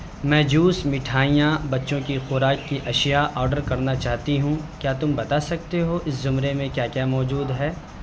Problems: none marked